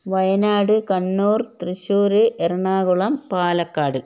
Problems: constant background noise